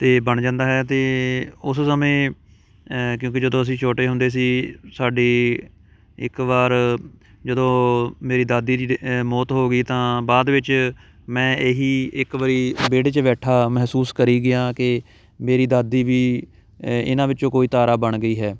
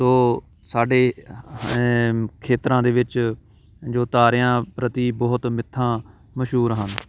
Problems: background sounds at intervals